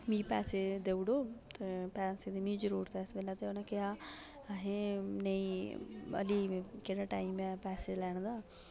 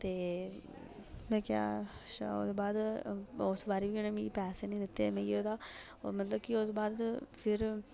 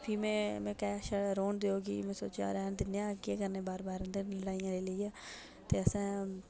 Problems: none marked